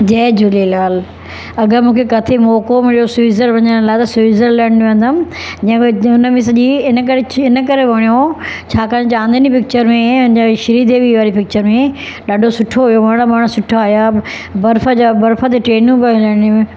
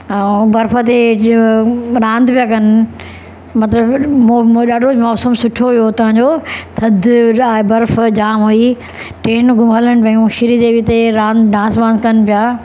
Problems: constant background noise